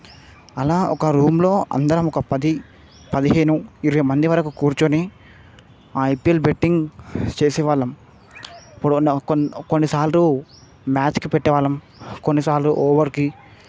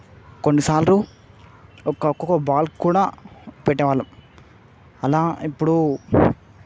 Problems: none marked